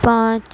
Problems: constant background noise